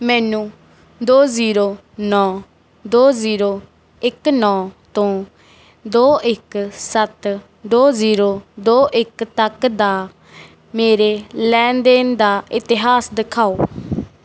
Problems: background sounds at intervals